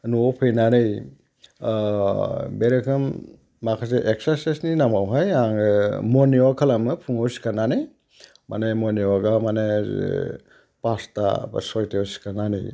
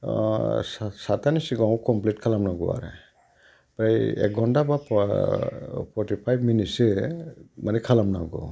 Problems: background sounds at intervals